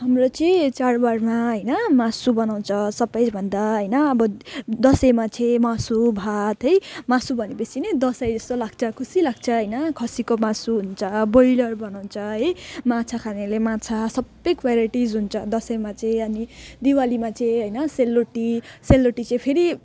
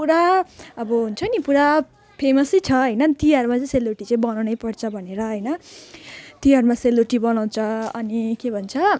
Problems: none marked